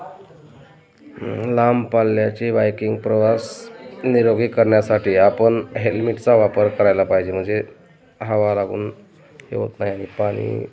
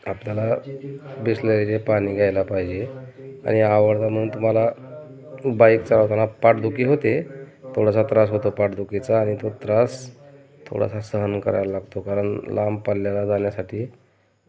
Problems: constant background noise, continuous background conversations